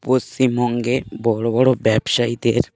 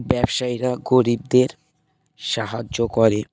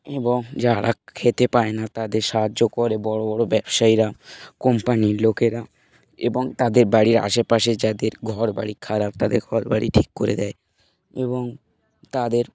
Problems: none marked